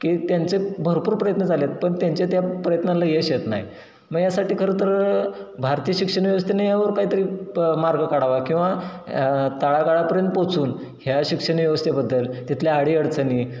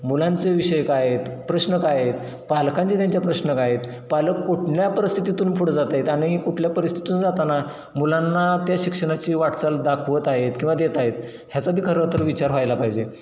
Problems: none marked